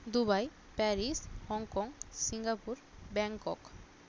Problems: constant background noise